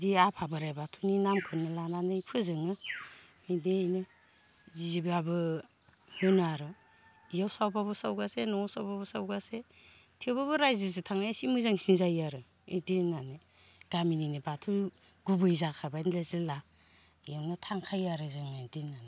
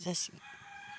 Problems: constant background noise